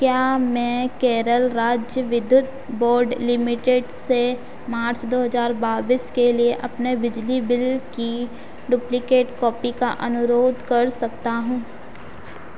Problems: constant background noise